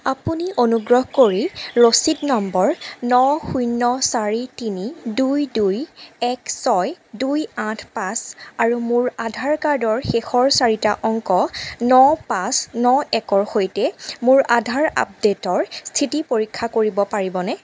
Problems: background sounds at intervals